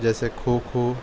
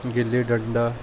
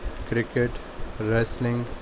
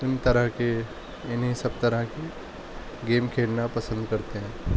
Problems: constant background noise